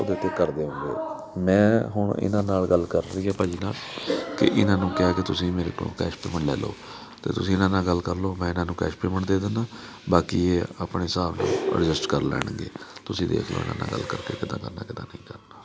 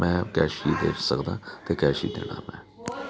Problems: continuous background conversations